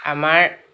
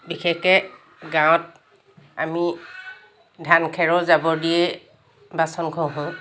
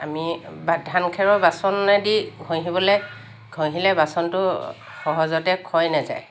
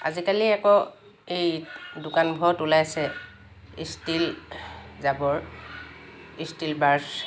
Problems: constant background noise